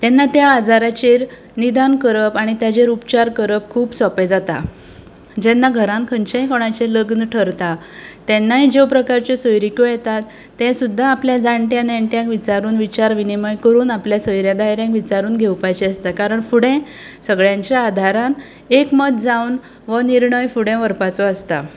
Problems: none marked